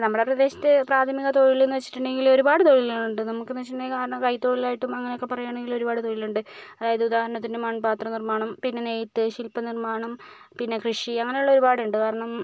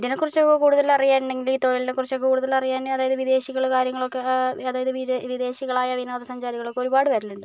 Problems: none marked